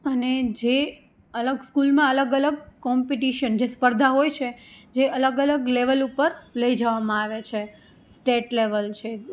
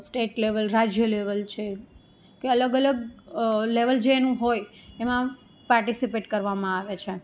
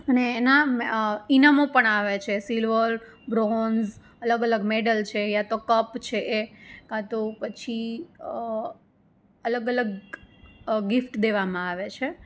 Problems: none marked